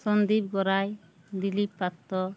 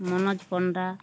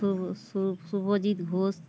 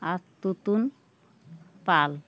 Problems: none marked